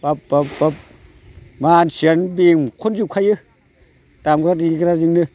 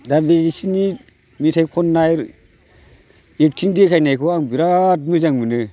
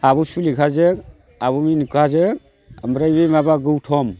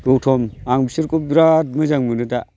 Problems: constant background noise